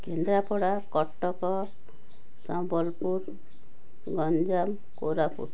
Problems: background sounds at intervals, background conversations at intervals